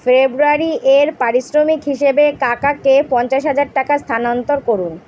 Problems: background sounds at intervals